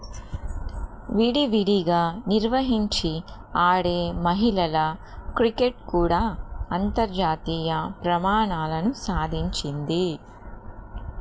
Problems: constant background noise